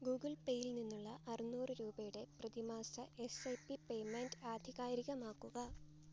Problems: background sounds at intervals